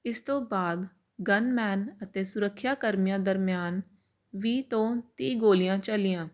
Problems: constant background noise